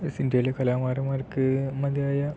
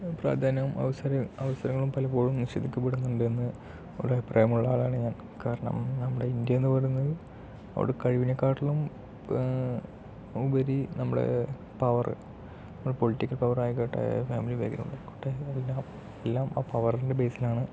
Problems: low volume